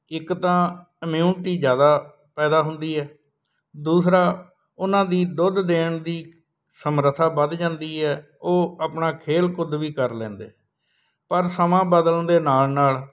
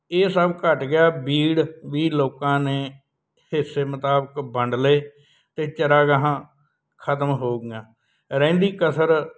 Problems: none marked